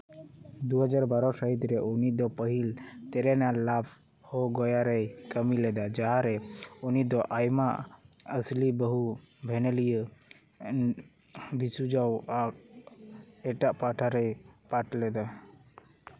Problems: none marked